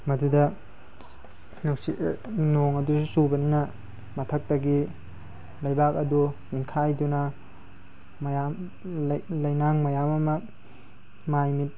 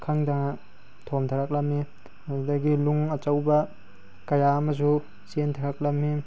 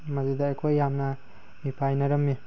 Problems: background sounds at intervals